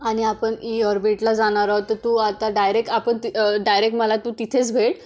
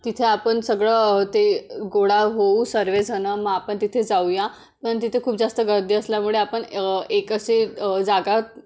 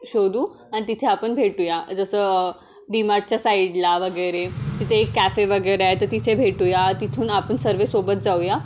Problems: background sounds at intervals